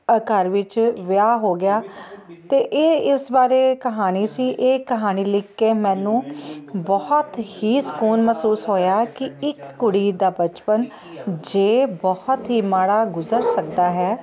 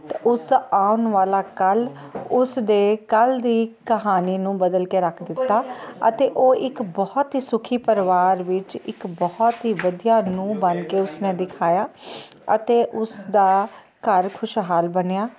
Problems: constant background noise